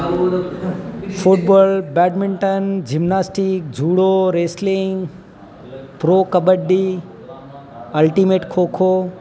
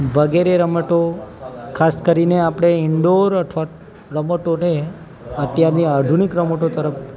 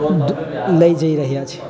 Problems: constant background noise